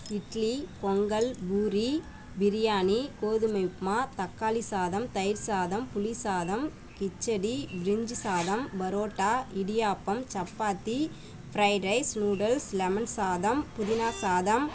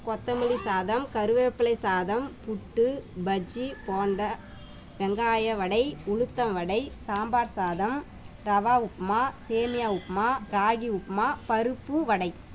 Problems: background sounds at intervals